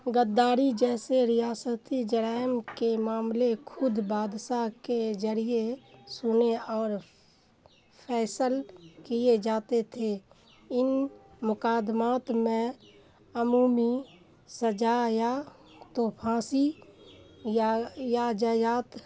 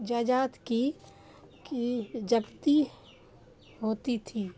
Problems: background sounds at intervals